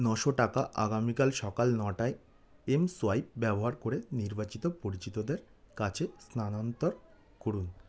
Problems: none marked